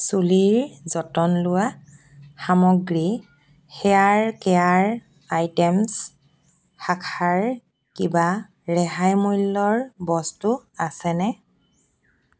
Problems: constant background noise